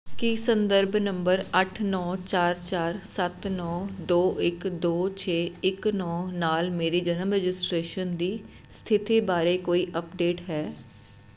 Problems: constant background noise